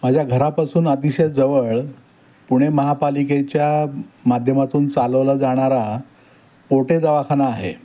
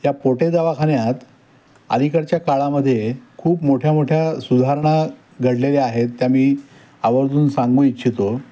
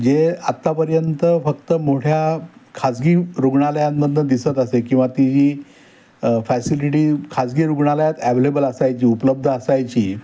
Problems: background sounds at intervals